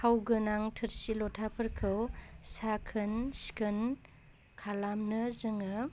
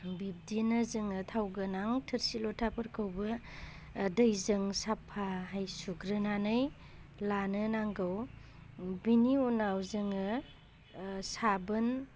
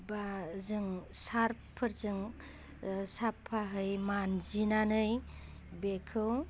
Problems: constant background noise